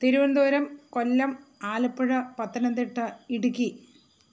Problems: constant background noise